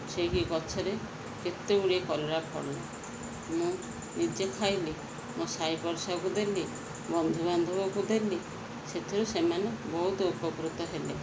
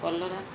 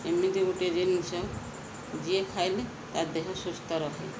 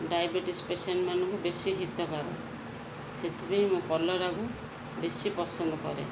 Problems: constant background noise